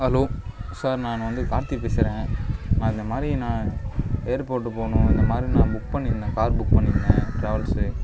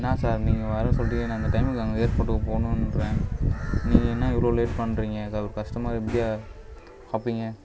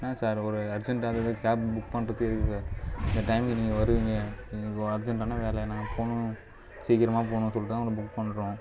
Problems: background sounds at intervals, low volume